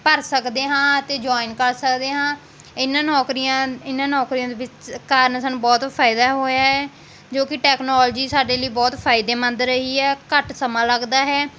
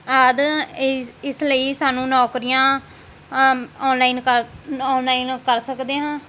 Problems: constant background noise